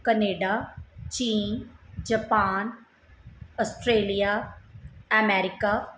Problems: background sounds at intervals